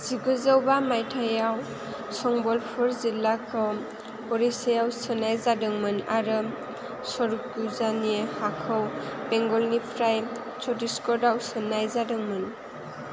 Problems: constant background noise